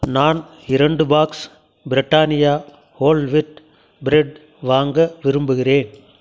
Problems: none marked